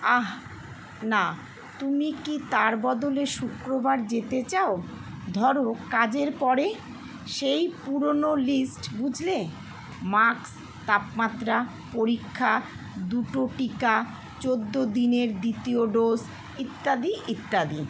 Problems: none marked